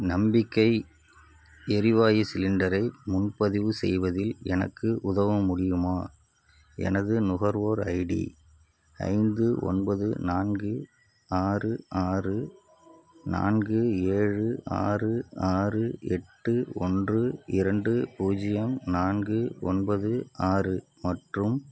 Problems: background sounds at intervals